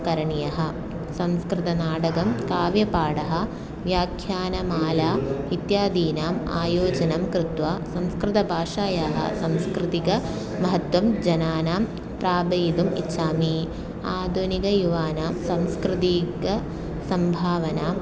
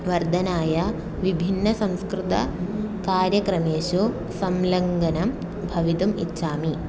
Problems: constant background noise, continuous background conversations